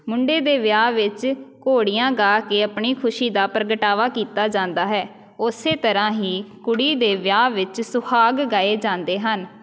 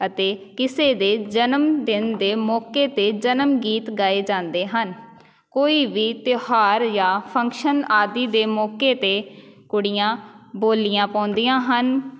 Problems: none marked